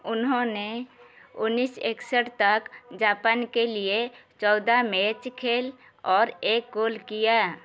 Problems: background sounds at intervals